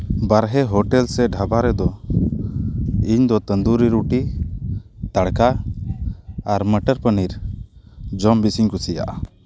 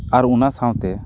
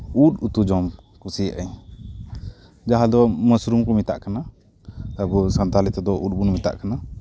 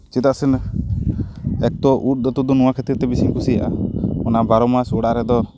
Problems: constant background noise